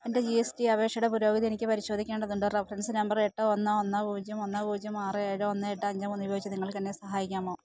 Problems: background sounds at intervals